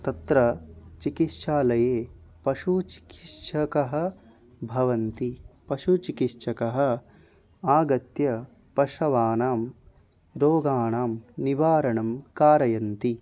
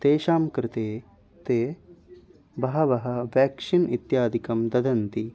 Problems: none marked